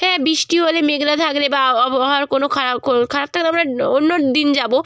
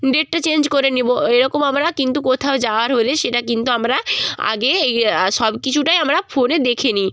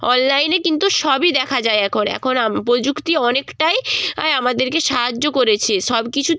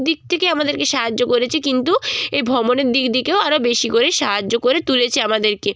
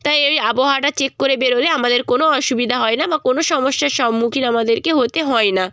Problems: background sounds at intervals